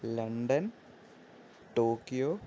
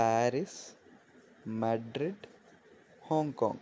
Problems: constant background noise